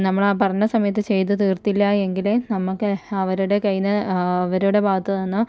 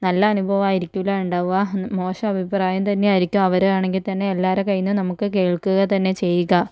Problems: low volume